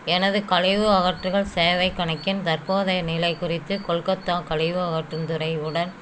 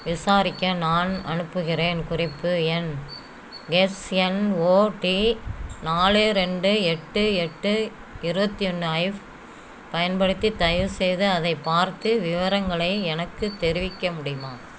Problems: none marked